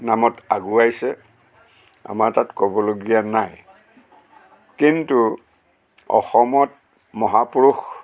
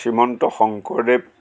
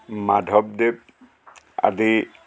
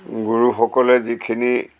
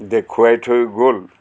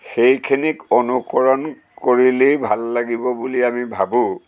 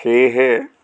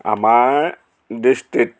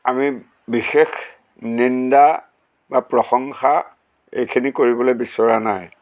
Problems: constant background noise, background conversations at intervals